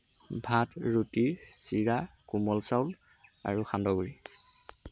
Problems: constant background noise